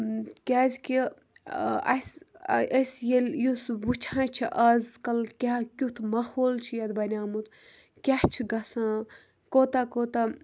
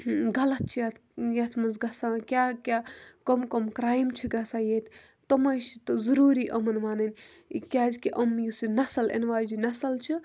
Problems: background sounds at intervals